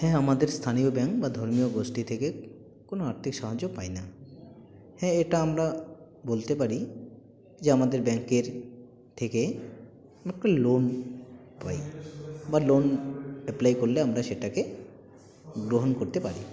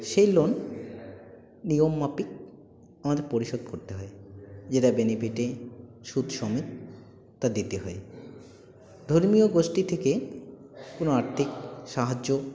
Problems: constant background noise, continuous background conversations